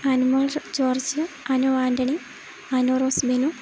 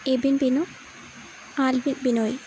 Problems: constant background noise